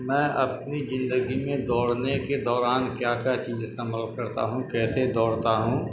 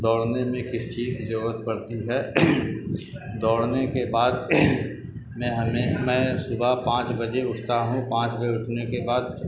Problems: constant background noise